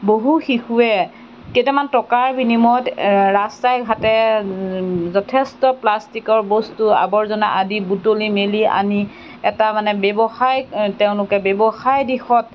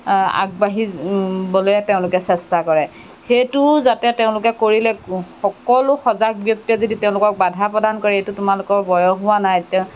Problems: background sounds at intervals